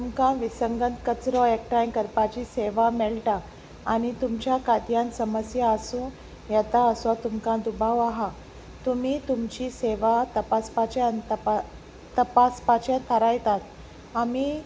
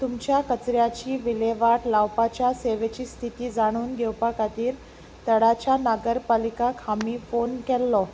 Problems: background sounds at intervals